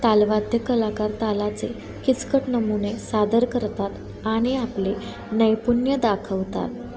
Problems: constant background noise, continuous background conversations